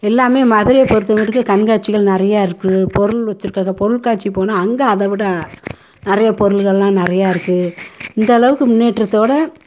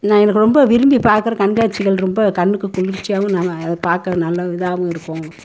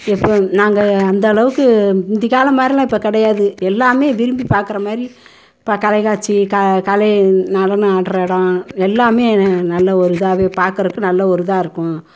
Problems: constant background noise